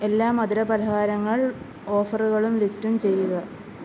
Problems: constant background noise